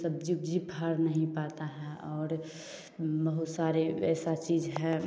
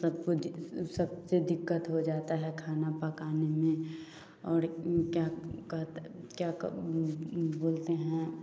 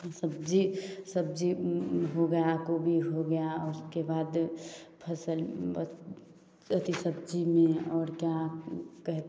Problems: none marked